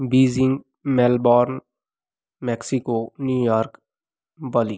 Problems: background sounds at intervals